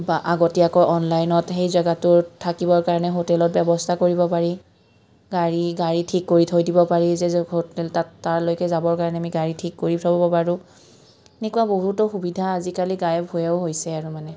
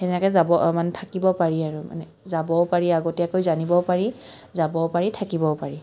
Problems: none marked